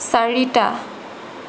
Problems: none marked